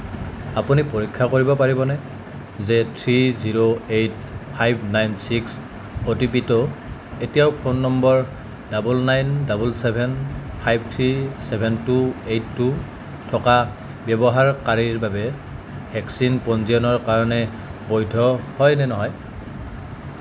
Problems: constant background noise